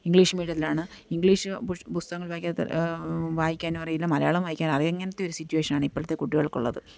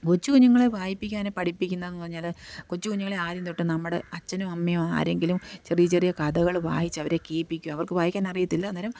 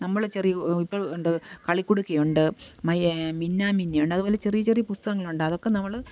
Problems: none marked